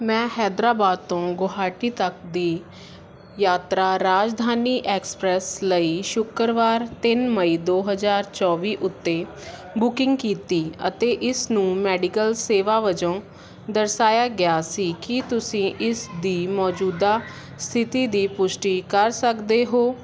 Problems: none marked